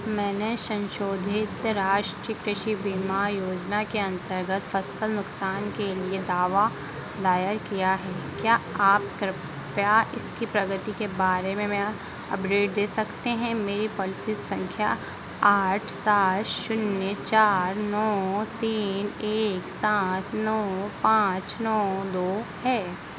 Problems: constant background noise